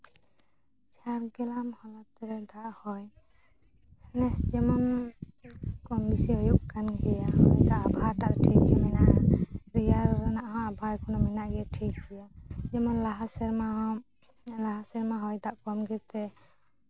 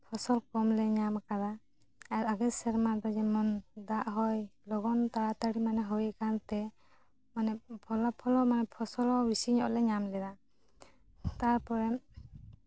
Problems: background sounds at intervals